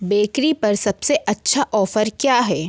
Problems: constant background noise